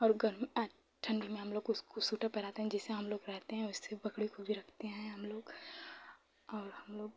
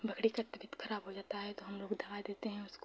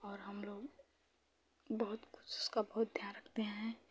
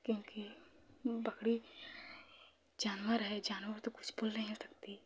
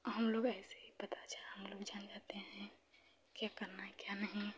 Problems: low volume